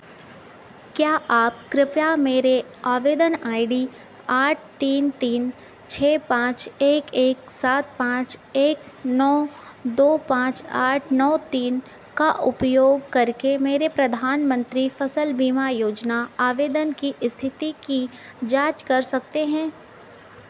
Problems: constant background noise